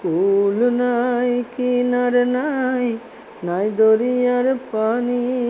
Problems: none marked